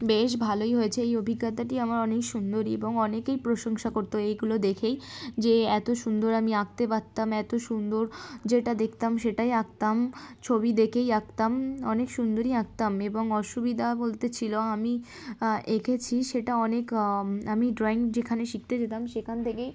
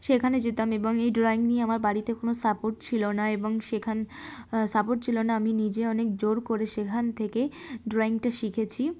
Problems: background sounds at intervals